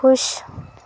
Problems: constant background noise